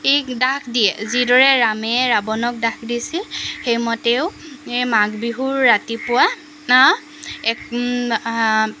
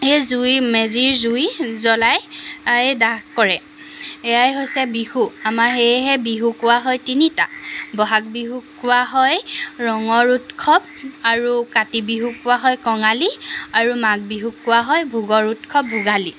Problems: constant background noise